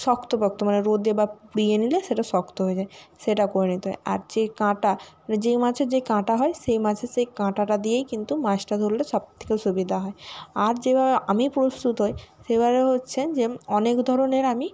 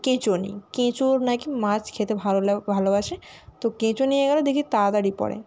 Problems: none marked